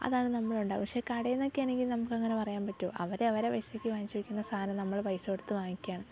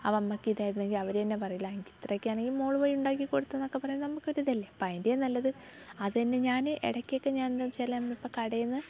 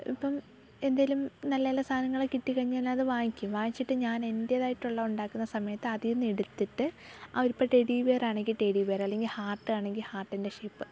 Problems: background sounds at intervals, low volume